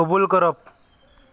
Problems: constant background noise